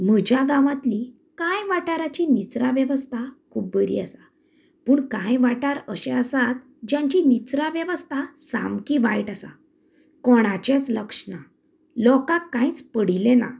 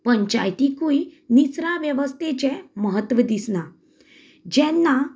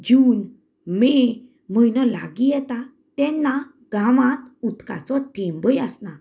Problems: none marked